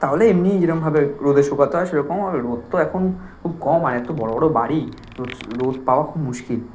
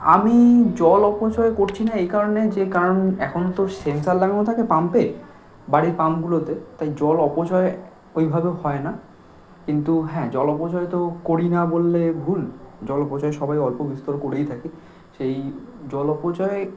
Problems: none marked